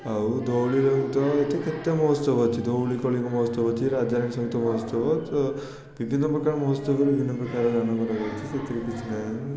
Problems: constant background noise, continuous background conversations